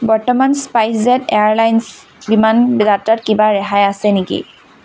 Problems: constant background noise